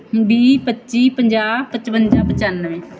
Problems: background sounds at intervals